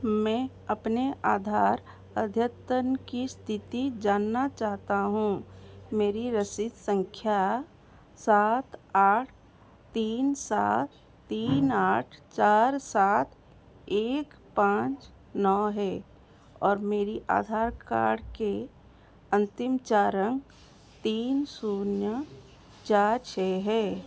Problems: constant background noise